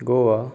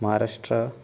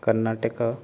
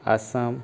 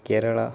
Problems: background conversations at intervals